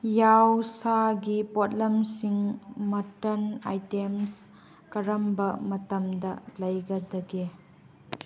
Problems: background sounds at intervals